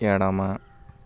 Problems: constant background noise